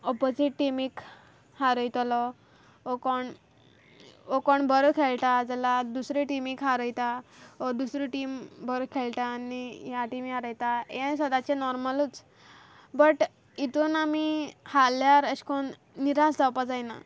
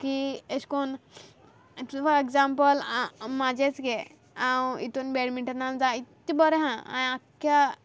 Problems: background sounds at intervals